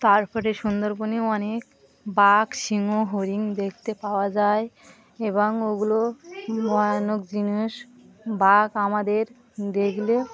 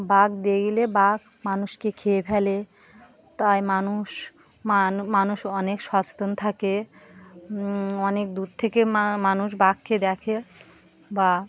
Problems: continuous background conversations